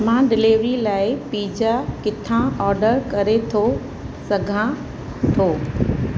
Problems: constant background noise